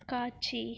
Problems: none marked